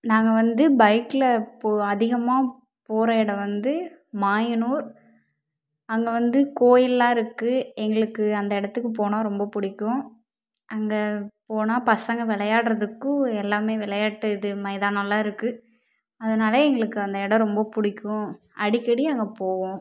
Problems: none marked